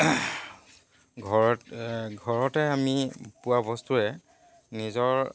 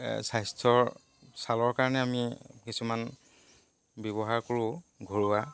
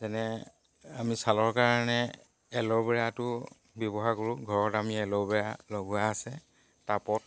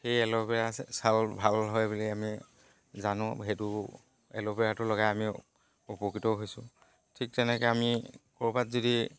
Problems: constant background noise